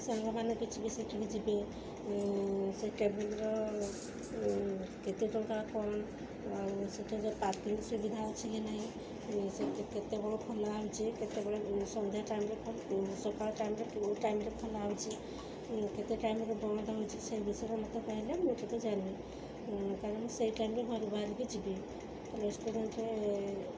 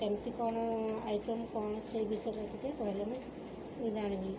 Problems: constant background noise